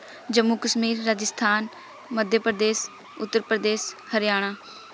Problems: constant background noise